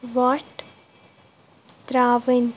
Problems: background sounds at intervals